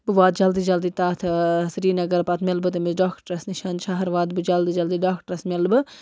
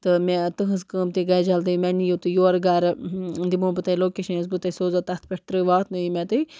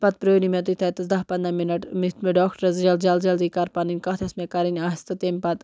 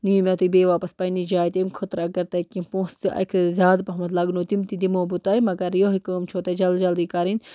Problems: background sounds at intervals